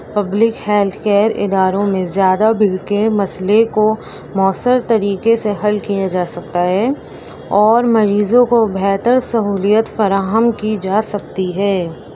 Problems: constant background noise